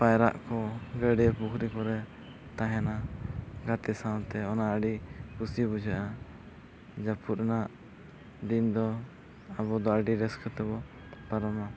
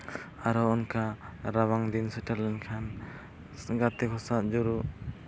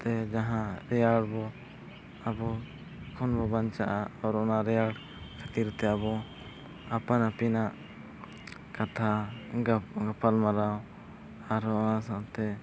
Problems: none marked